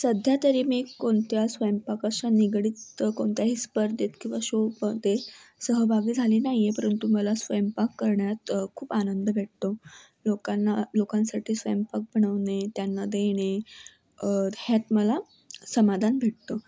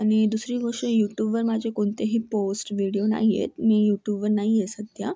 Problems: none marked